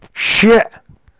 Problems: constant background noise